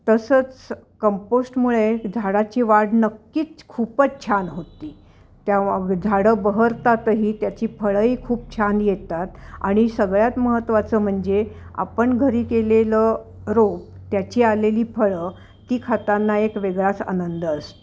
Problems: none marked